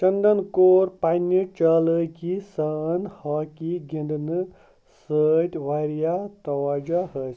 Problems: none marked